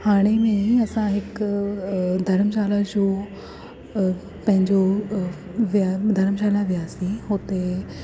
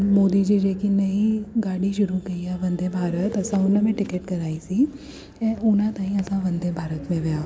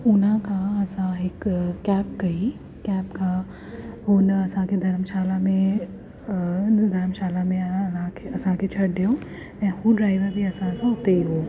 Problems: constant background noise